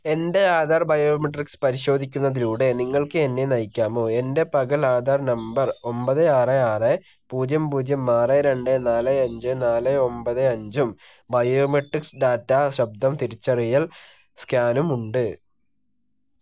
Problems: none marked